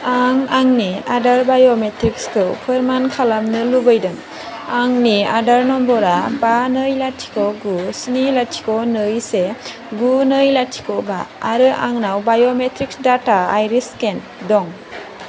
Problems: constant background noise